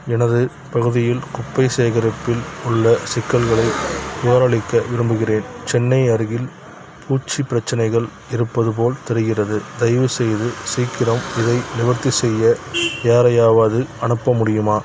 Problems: none marked